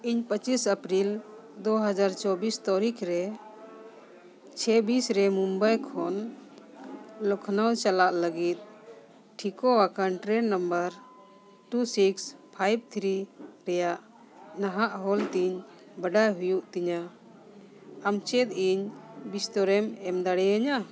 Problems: continuous background conversations